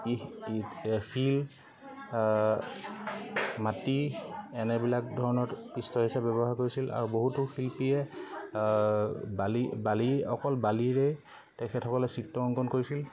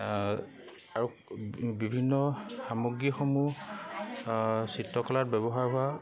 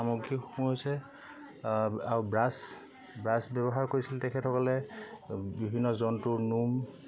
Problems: constant background noise, continuous background conversations